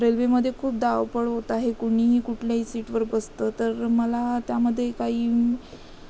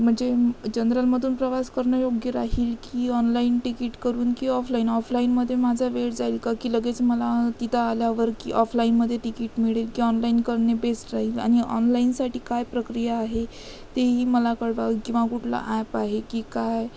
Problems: constant background noise